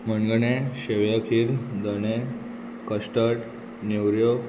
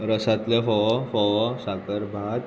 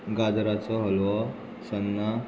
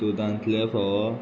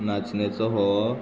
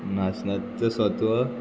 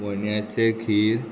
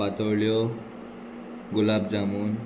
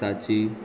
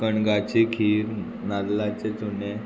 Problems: constant background noise